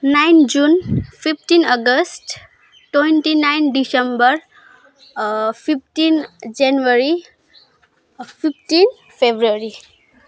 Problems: background sounds at intervals